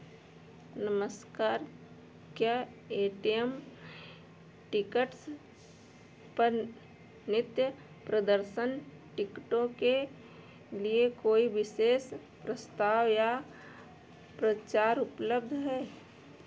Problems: background sounds at intervals